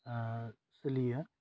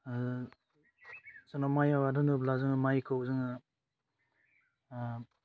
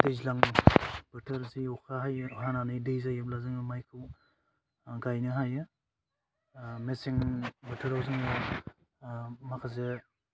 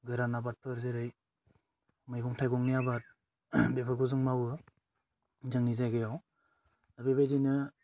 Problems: constant background noise